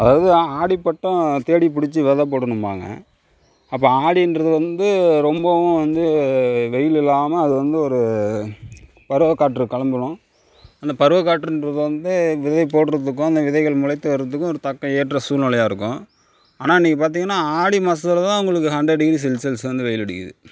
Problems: background sounds at intervals